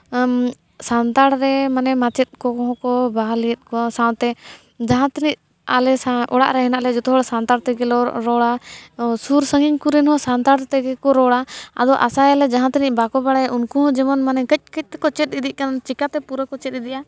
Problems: none marked